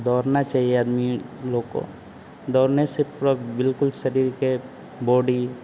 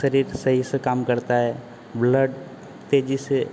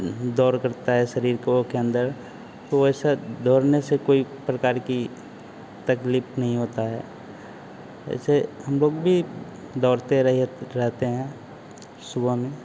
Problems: constant background noise